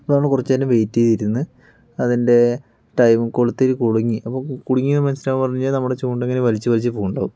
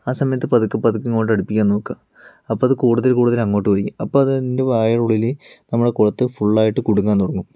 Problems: none marked